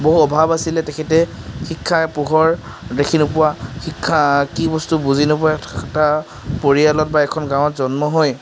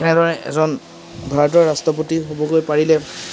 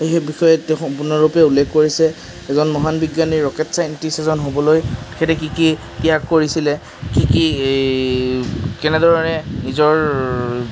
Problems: none marked